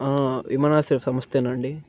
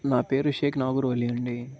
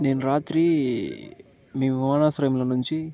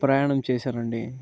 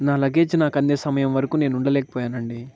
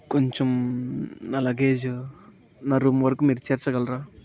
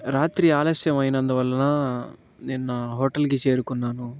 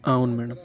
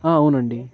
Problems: background sounds at intervals, background conversations at intervals